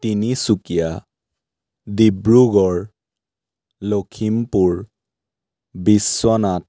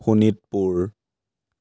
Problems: background sounds at intervals